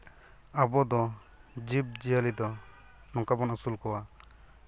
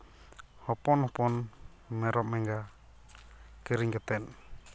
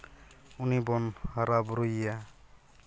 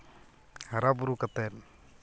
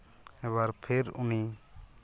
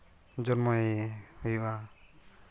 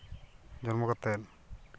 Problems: none marked